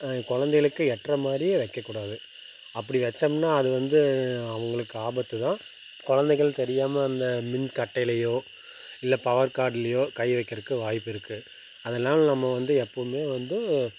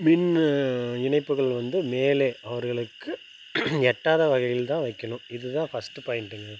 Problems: constant background noise